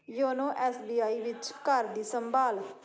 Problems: background sounds at intervals, continuous background conversations